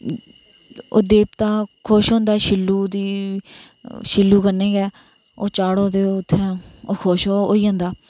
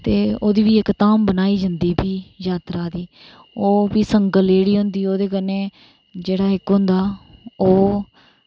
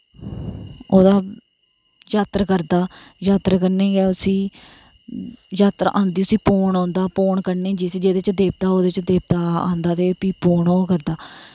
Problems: none marked